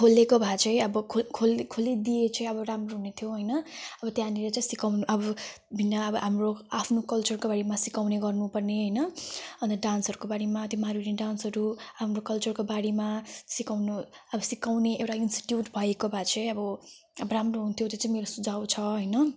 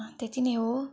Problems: none marked